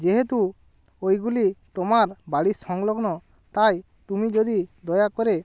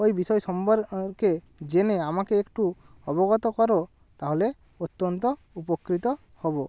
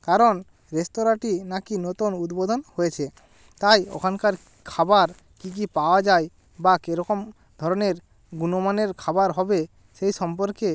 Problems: constant background noise